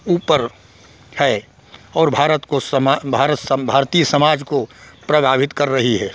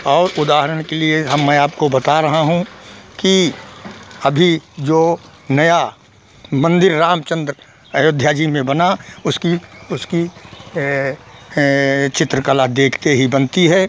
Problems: none marked